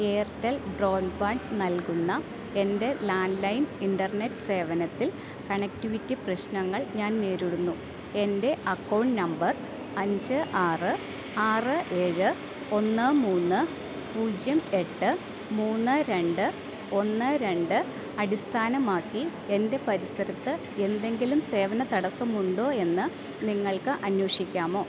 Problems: none marked